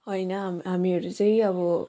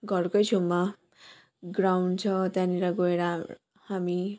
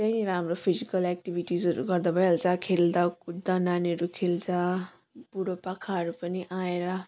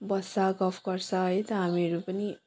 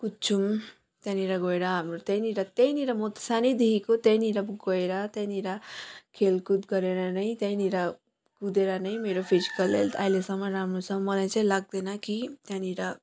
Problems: none marked